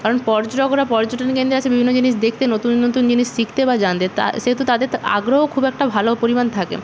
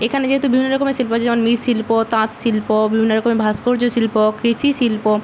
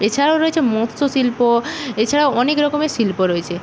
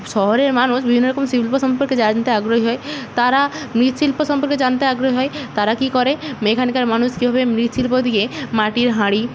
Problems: constant background noise